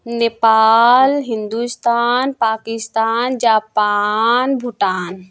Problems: constant background noise